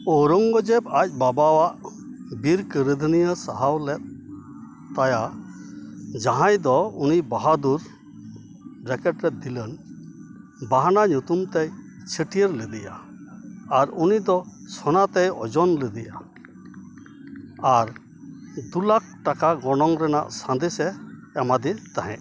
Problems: constant background noise